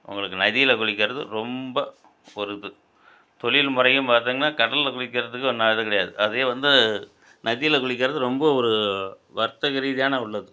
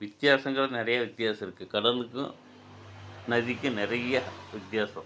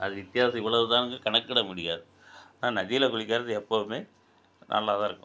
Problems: none marked